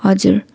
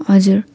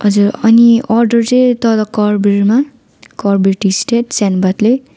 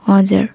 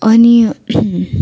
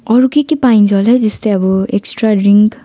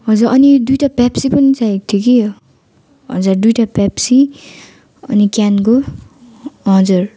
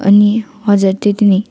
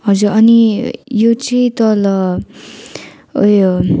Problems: continuous background conversations